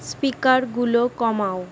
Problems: constant background noise